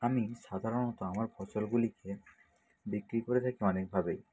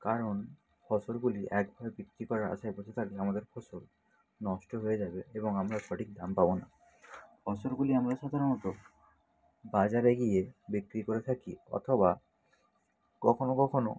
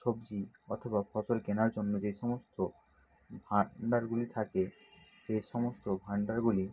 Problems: none marked